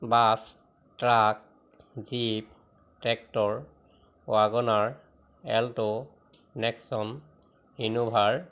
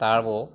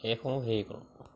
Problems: constant background noise